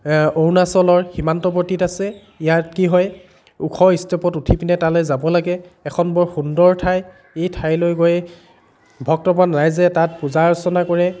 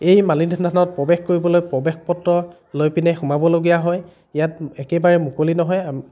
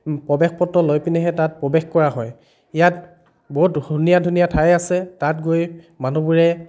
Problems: none marked